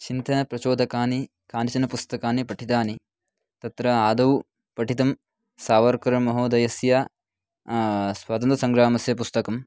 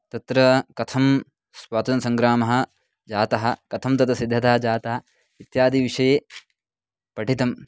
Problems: background sounds at intervals, background conversations at intervals